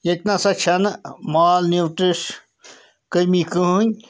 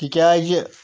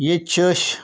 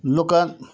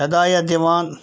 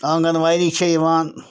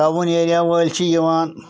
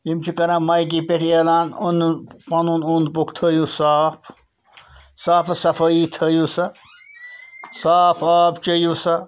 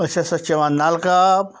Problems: constant background noise